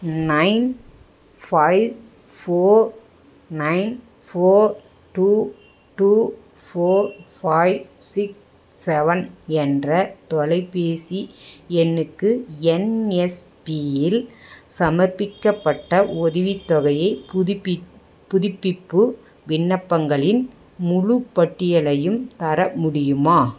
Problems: none marked